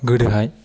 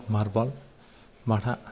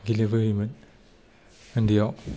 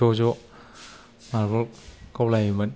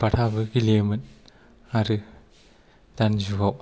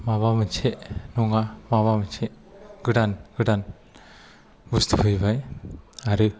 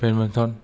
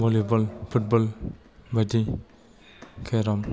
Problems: low volume